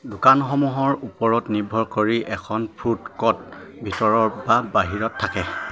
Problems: none marked